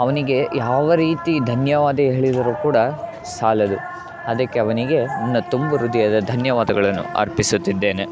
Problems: continuous background conversations